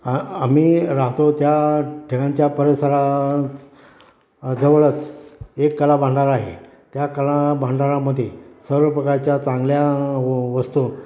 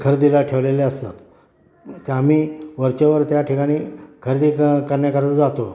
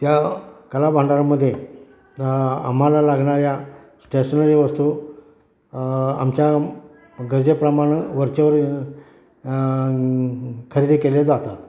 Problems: background sounds at intervals, background conversations at intervals